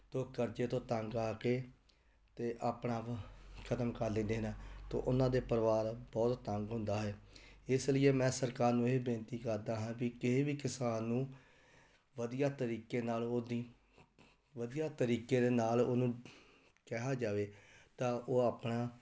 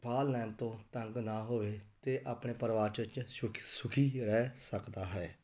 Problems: none marked